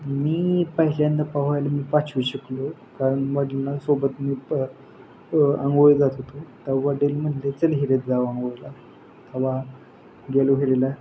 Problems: constant background noise